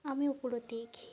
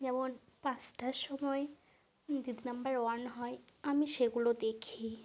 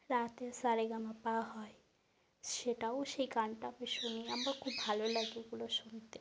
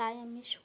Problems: constant background noise